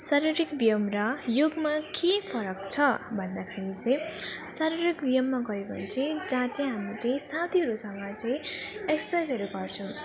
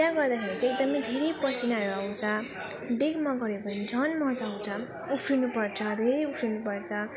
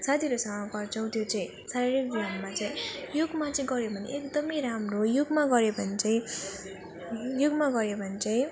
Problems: continuous background conversations